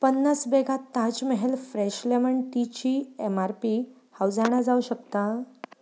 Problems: background sounds at intervals